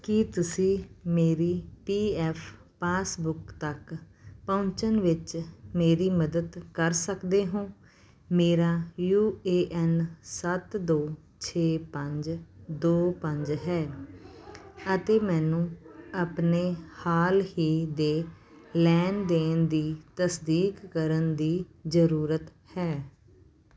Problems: background sounds at intervals